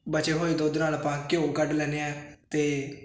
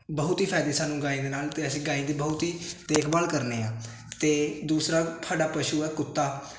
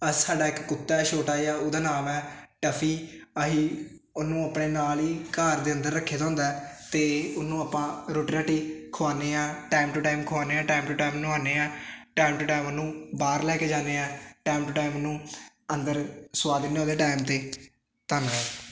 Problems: constant background noise